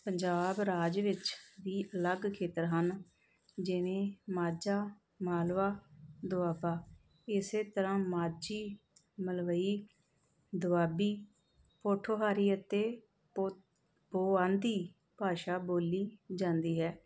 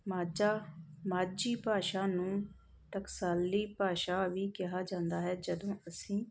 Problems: background sounds at intervals